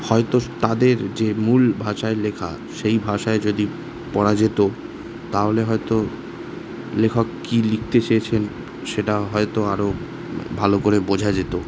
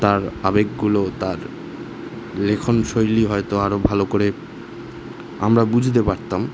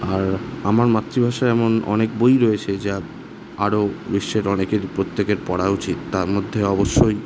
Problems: constant background noise